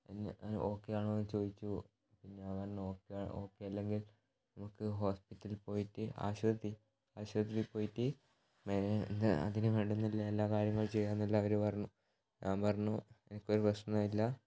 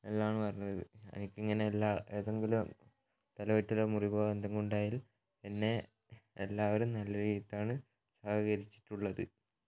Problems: low volume